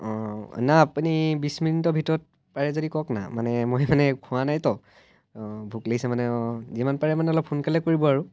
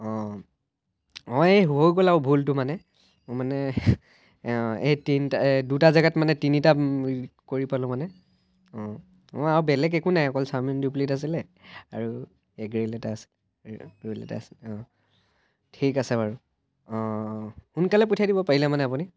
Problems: none marked